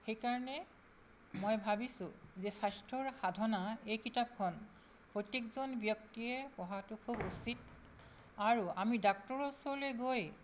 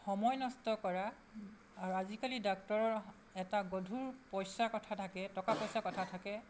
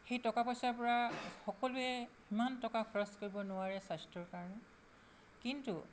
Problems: none marked